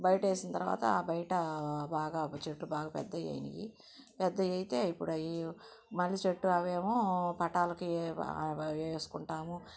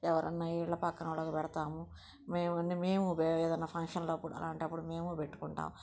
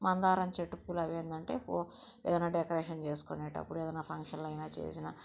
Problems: background sounds at intervals, low volume